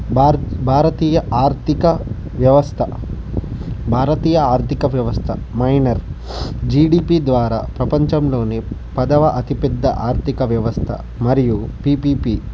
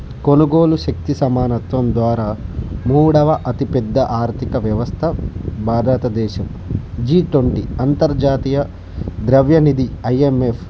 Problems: constant background noise